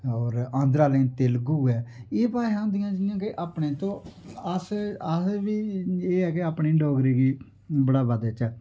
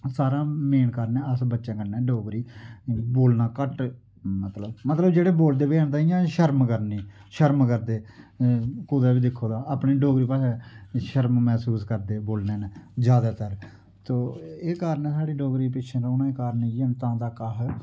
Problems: none marked